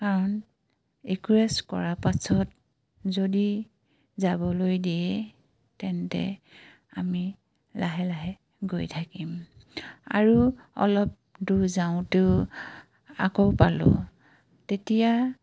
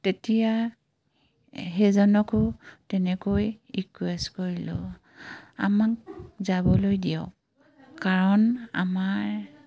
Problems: background sounds at intervals